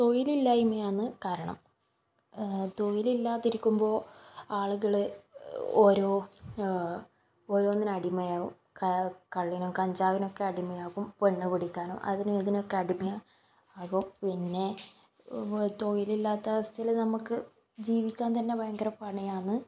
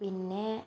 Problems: background sounds at intervals